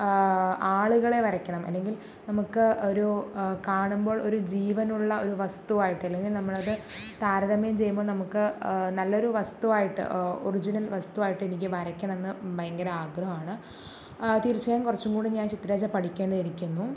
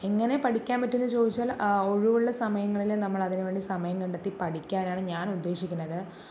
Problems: none marked